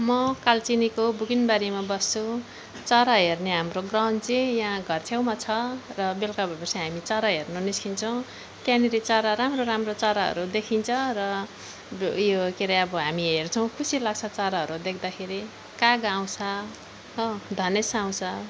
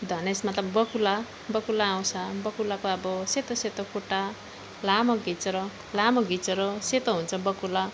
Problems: none marked